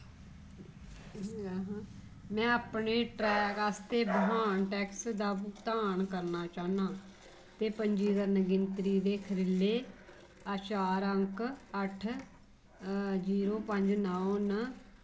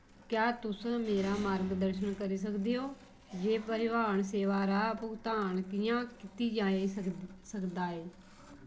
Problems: constant background noise, low volume